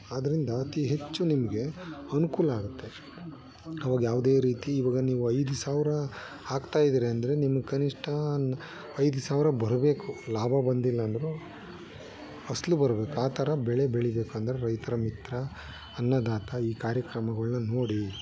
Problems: background conversations at intervals